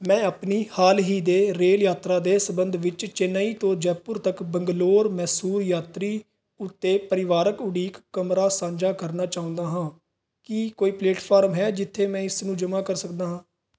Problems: none marked